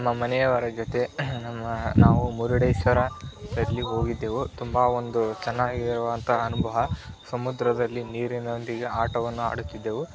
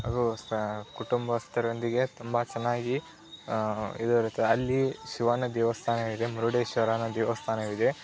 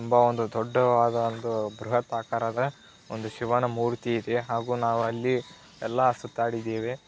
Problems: constant background noise